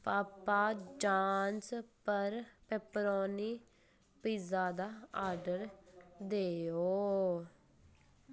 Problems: constant background noise